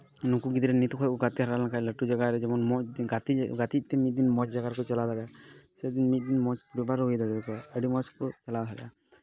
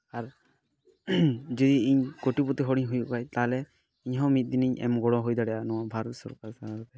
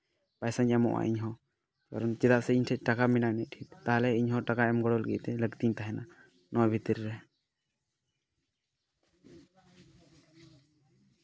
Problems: background conversations at intervals